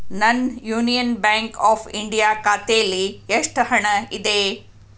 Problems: none marked